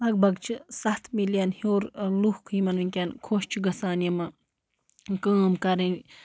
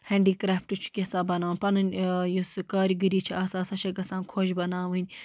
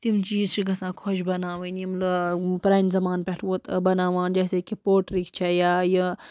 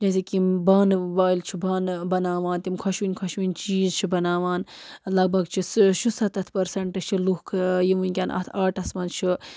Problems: background sounds at intervals